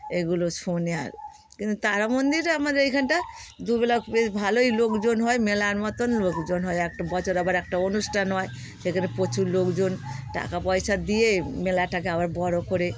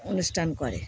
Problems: constant background noise, background conversations at intervals